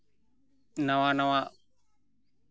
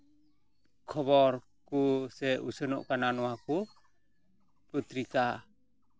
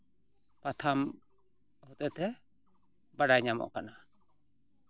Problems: background sounds at intervals